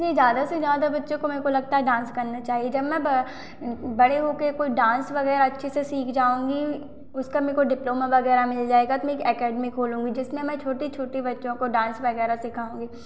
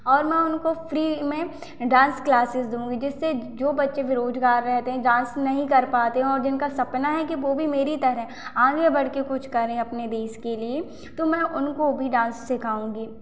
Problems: constant background noise, echo